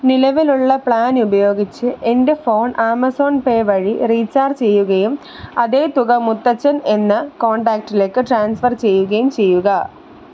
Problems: constant background noise